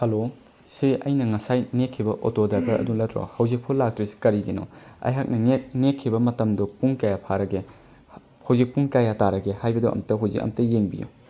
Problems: background sounds at intervals